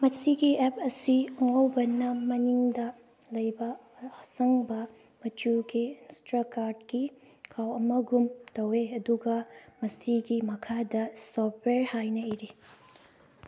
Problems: background sounds at intervals